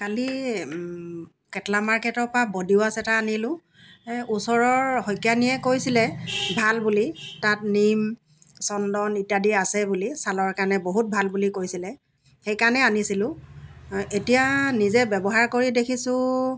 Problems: background sounds at intervals